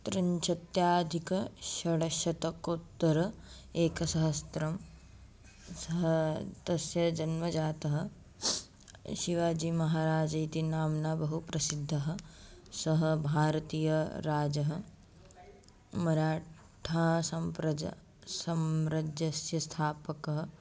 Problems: none marked